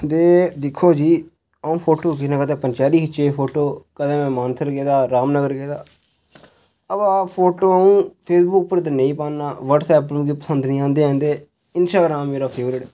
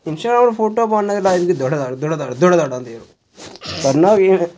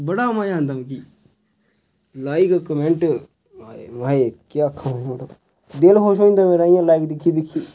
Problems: background sounds at intervals